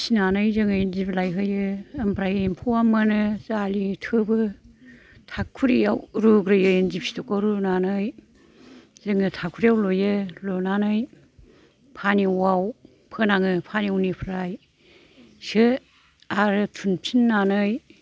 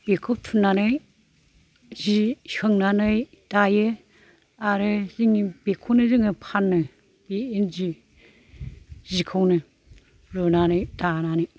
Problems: none marked